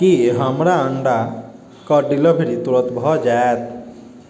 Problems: none marked